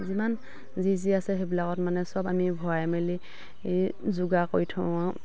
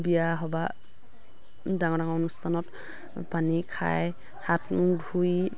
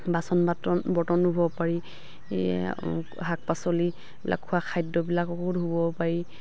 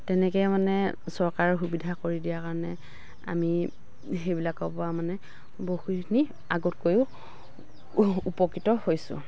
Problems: background sounds at intervals, background conversations at intervals